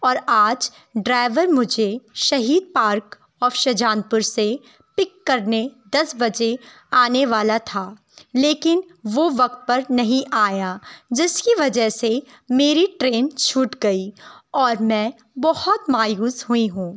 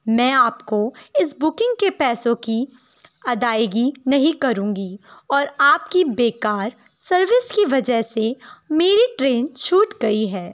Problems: none marked